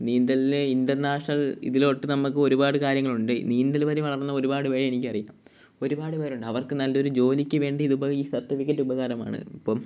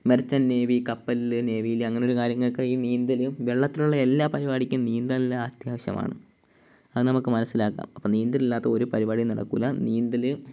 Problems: none marked